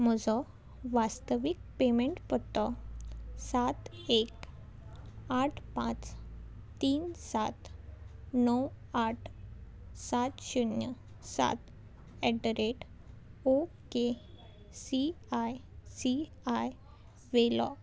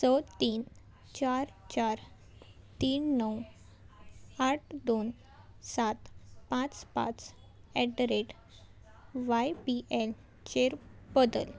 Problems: none marked